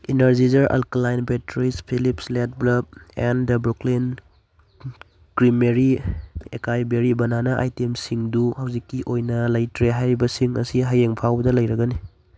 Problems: background sounds at intervals